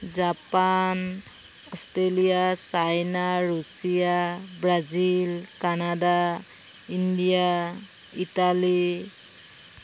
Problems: constant background noise